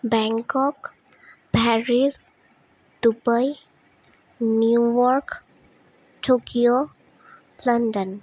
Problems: none marked